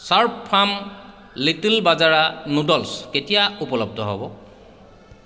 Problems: background sounds at intervals, echo